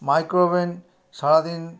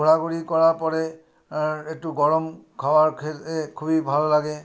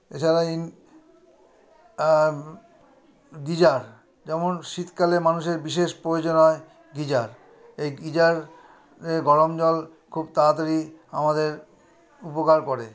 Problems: none marked